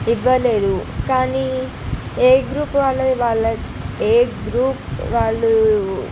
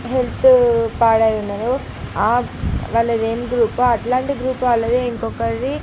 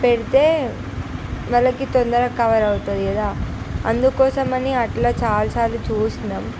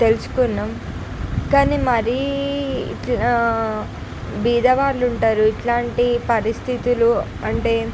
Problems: none marked